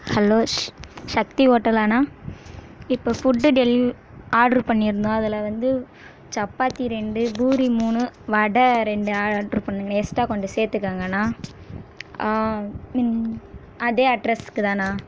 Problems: background sounds at intervals